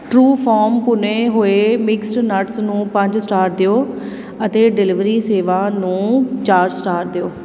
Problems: none marked